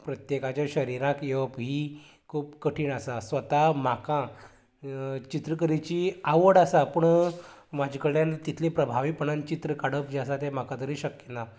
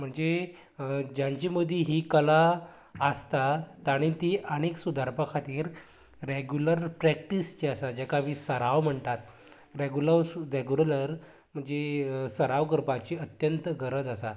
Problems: none marked